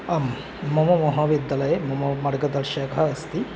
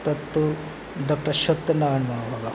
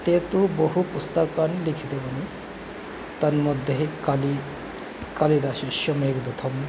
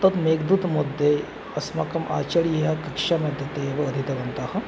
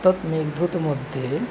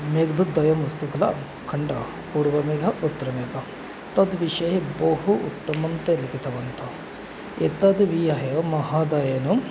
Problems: constant background noise, background conversations at intervals